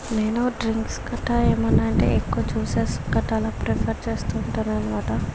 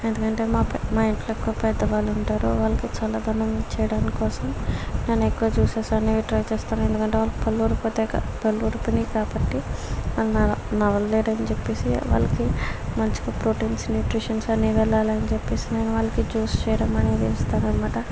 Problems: constant background noise